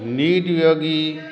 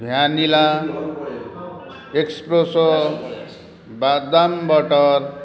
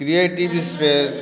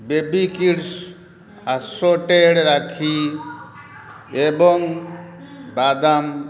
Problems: constant background noise